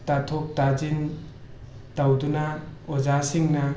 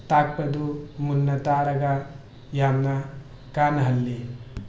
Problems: background sounds at intervals